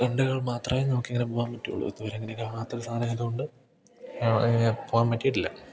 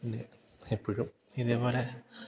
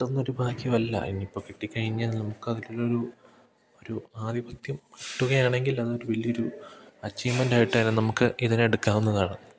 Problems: none marked